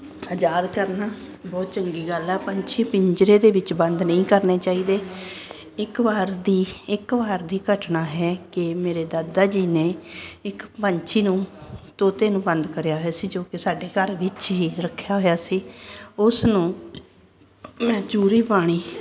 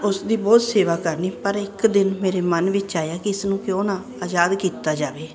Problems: constant background noise